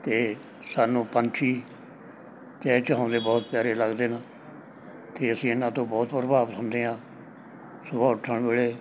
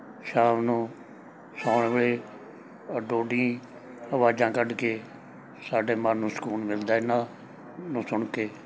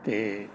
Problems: background sounds at intervals, background conversations at intervals